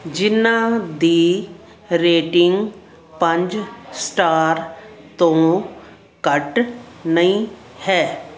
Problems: none marked